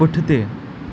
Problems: constant background noise